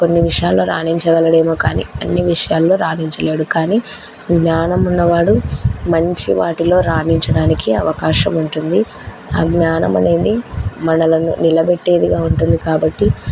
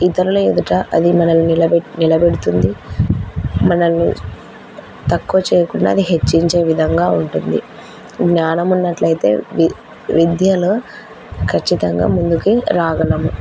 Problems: background sounds at intervals, background conversations at intervals